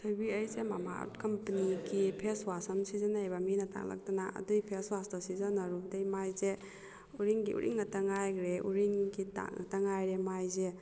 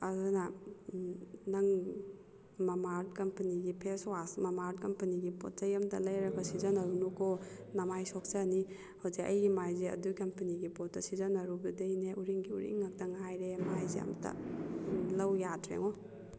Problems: background conversations at intervals